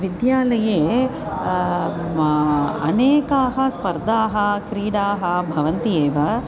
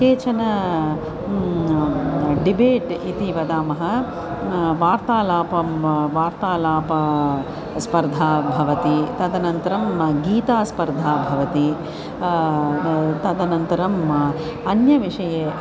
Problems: constant background noise, continuous background conversations